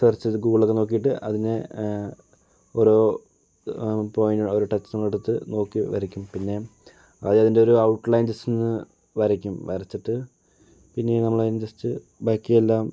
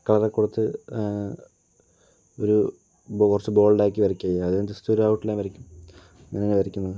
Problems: low volume